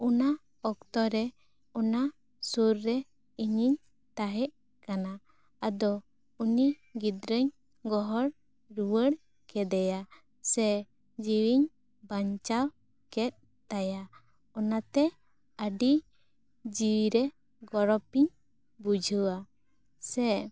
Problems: none marked